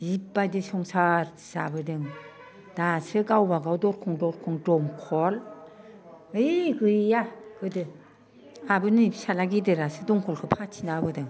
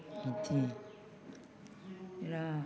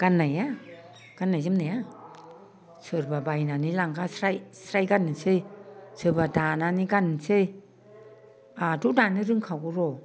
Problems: constant background noise